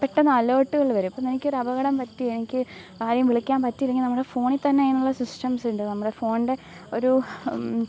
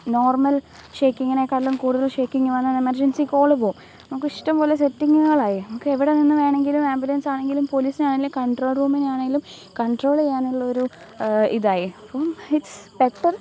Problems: background sounds at intervals